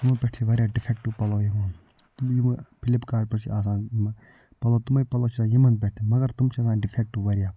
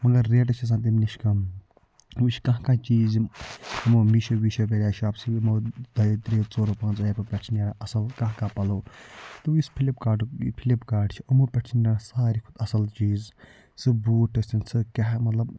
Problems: background sounds at intervals, low volume